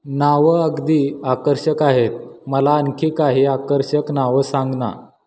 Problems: constant background noise, echo